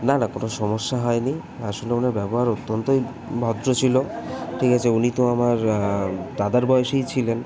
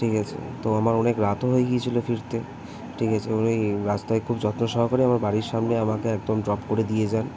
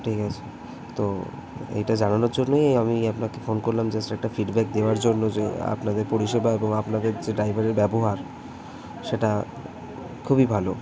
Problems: constant background noise, background conversations at intervals